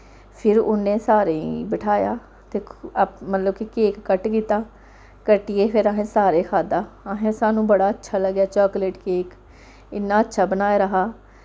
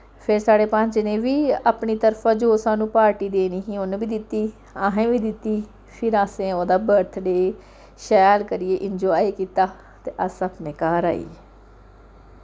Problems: background sounds at intervals